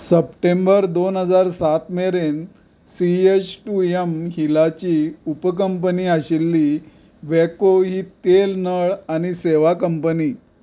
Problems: background sounds at intervals